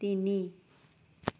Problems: background sounds at intervals